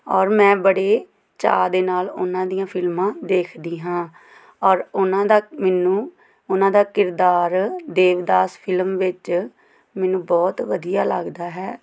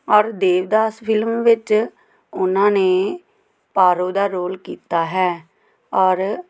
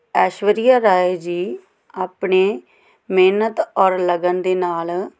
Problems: none marked